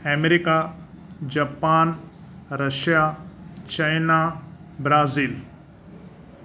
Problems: none marked